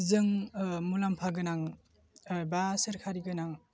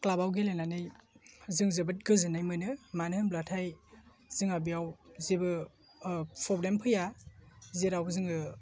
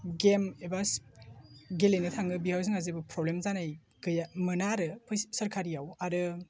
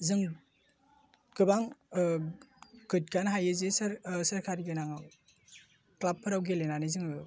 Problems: constant background noise